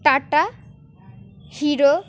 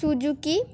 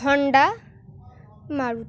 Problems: background sounds at intervals